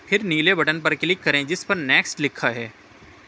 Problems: constant background noise